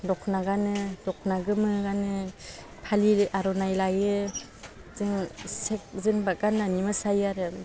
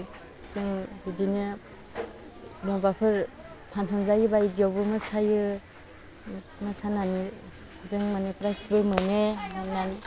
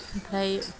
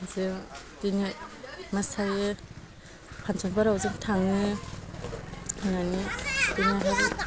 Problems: constant background noise